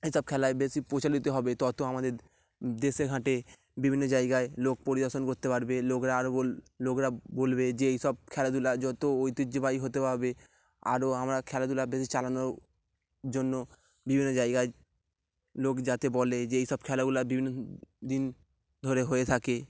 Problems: none marked